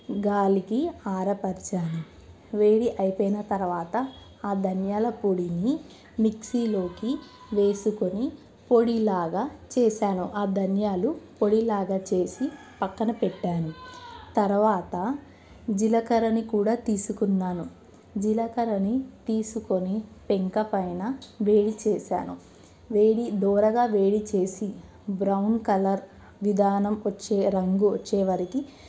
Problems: background sounds at intervals